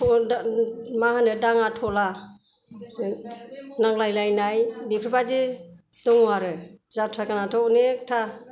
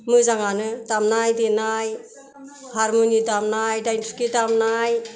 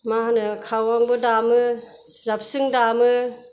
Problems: background sounds at intervals